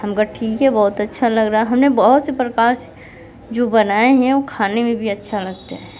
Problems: background sounds at intervals, background conversations at intervals